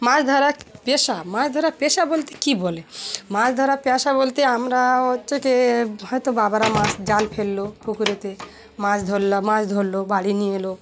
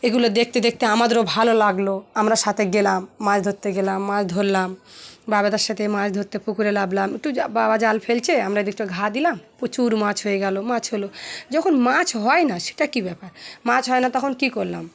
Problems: constant background noise, continuous background conversations